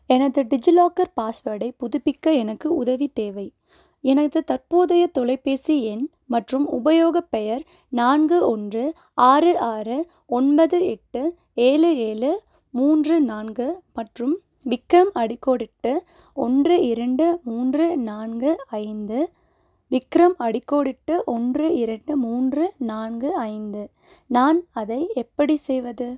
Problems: none marked